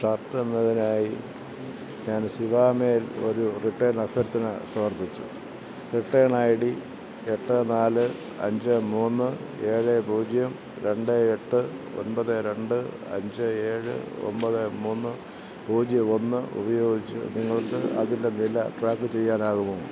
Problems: constant background noise